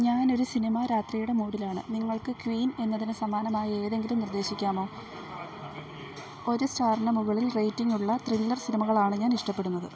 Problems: low volume